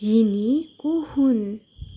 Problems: none marked